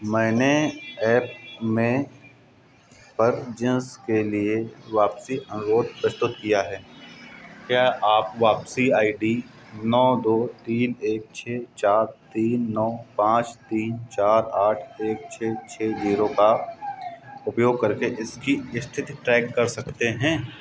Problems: constant background noise